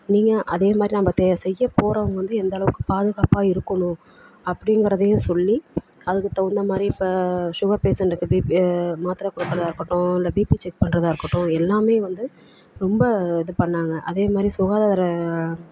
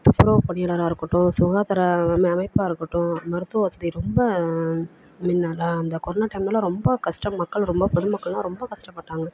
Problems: constant background noise